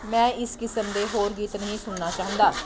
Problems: constant background noise